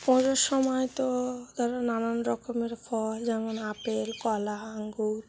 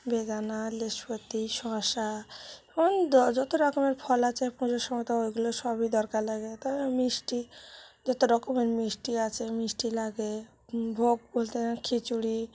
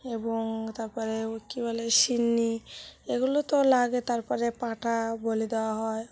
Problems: none marked